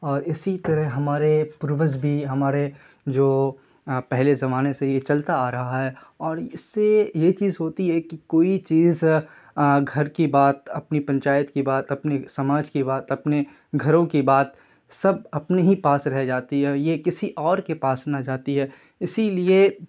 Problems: none marked